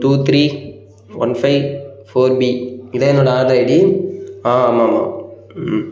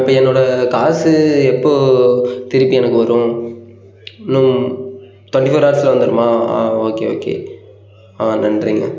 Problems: background sounds at intervals